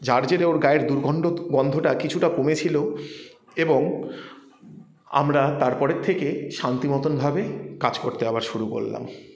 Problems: none marked